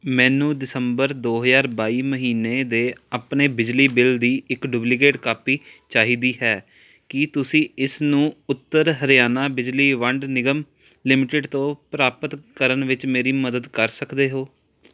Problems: none marked